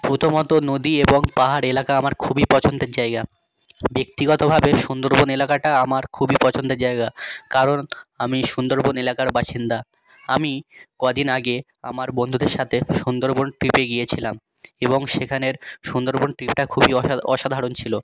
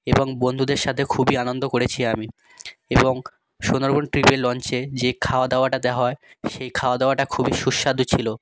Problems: none marked